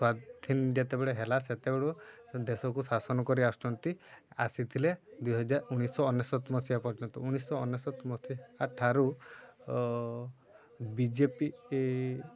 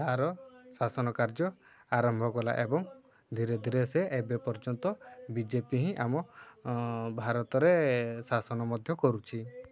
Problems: constant background noise, continuous background conversations